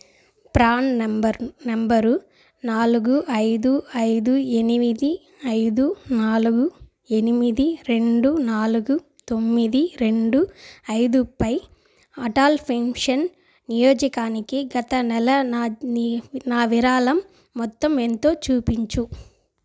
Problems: constant background noise